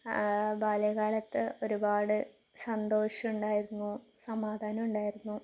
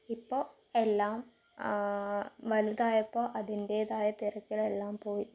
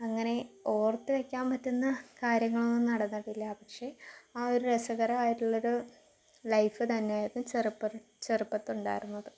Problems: background sounds at intervals